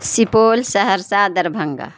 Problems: none marked